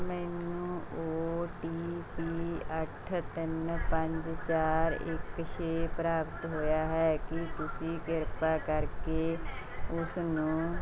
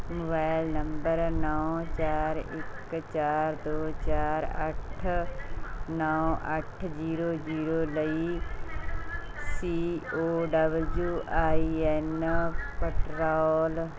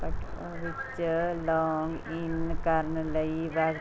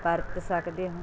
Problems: constant background noise, background conversations at intervals